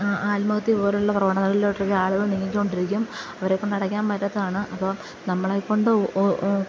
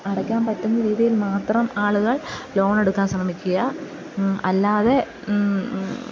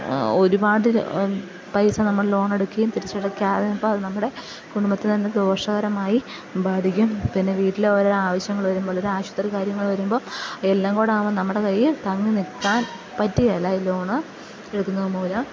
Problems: background sounds at intervals, low volume